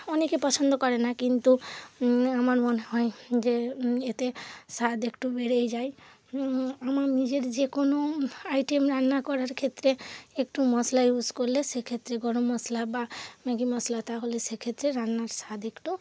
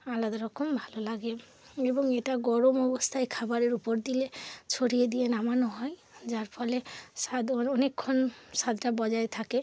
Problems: constant background noise